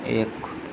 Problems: background sounds at intervals